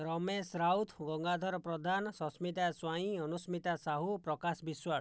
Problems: low volume